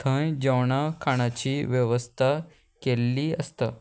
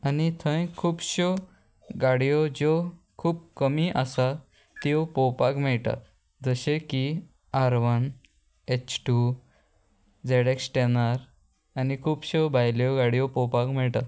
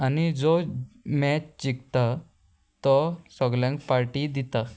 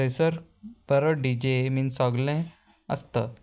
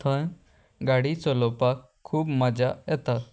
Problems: constant background noise